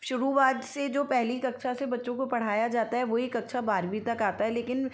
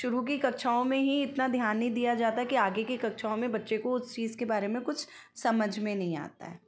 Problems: constant background noise